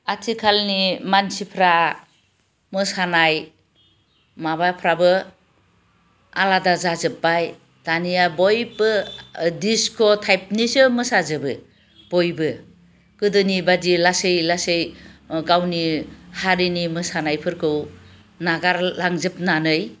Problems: none marked